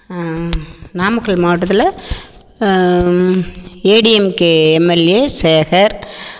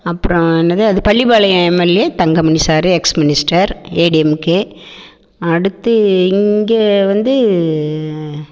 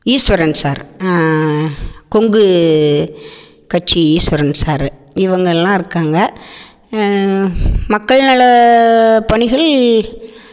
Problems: echo